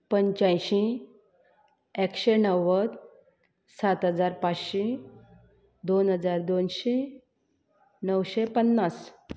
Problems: constant background noise